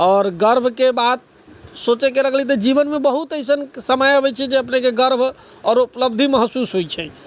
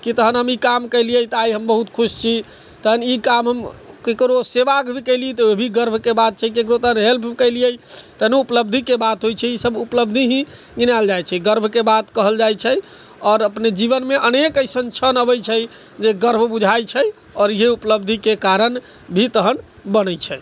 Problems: background sounds at intervals